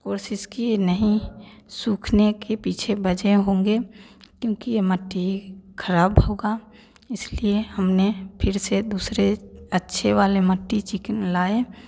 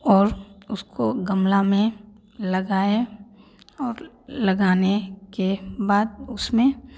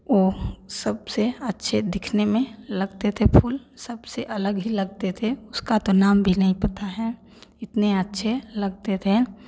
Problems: none marked